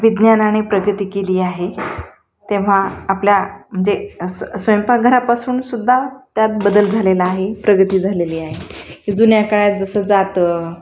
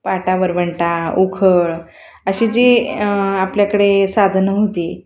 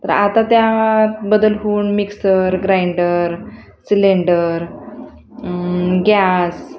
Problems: none marked